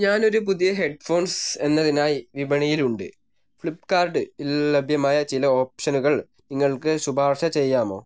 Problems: none marked